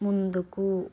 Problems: none marked